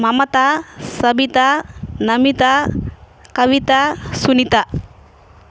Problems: none marked